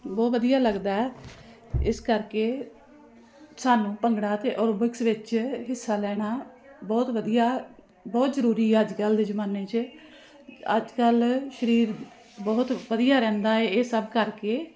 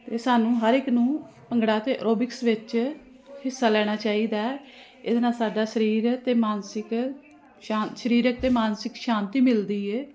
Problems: constant background noise